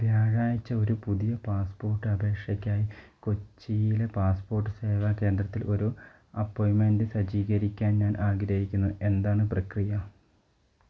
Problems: none marked